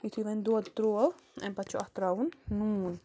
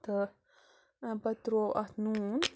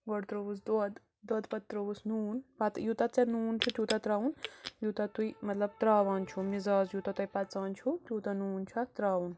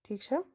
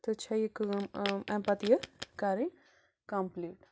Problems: constant background noise